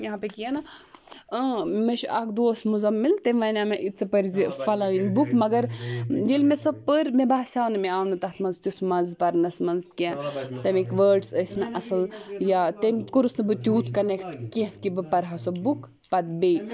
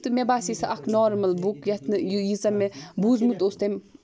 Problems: constant background noise